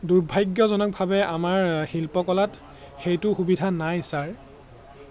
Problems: none marked